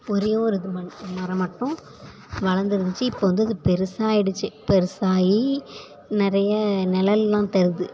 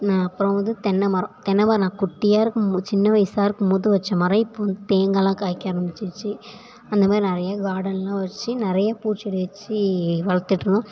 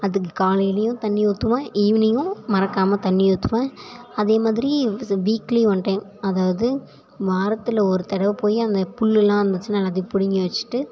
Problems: background conversations at intervals